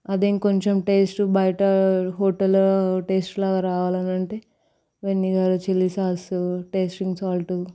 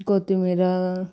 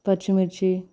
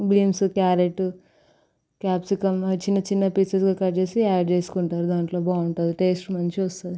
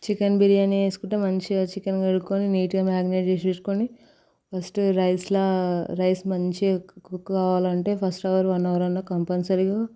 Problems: constant background noise